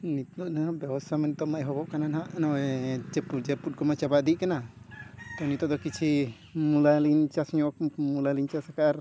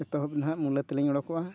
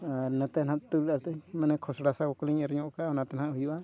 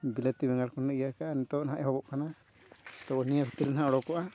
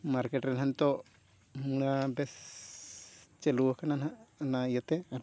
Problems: background sounds at intervals, low volume